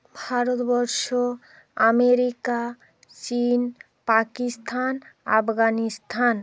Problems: constant background noise, background conversations at intervals